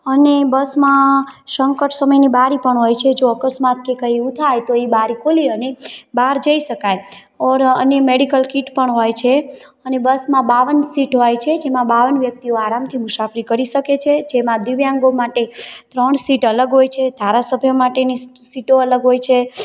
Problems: constant background noise